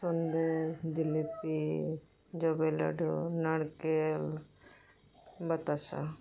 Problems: background sounds at intervals